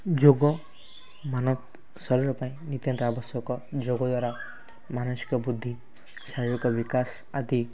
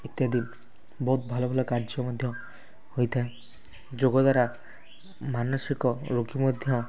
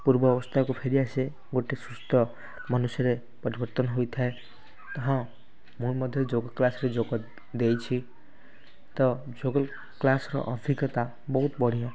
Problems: constant background noise